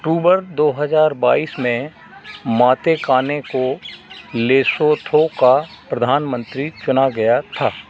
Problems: none marked